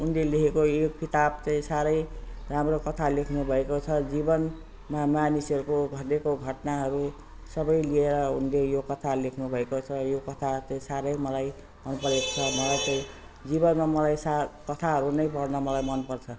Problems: constant background noise